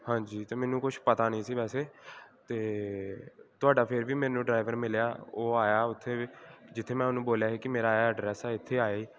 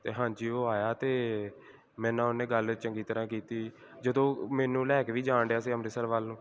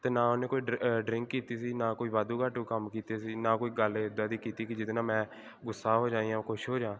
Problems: background conversations at intervals